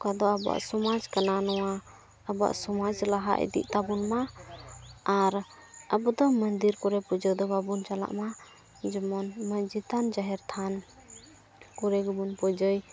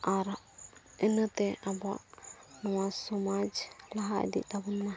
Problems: background sounds at intervals, low volume